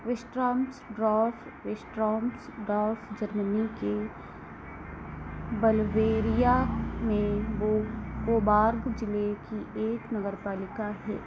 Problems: constant background noise